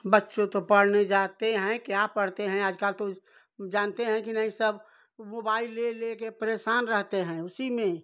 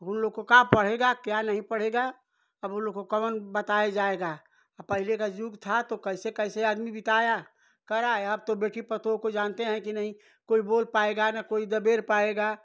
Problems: none marked